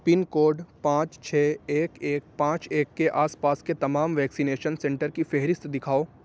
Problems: constant background noise